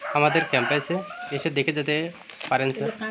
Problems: constant background noise